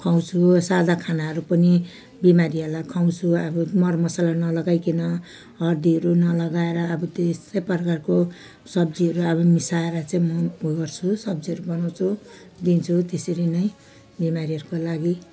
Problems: none marked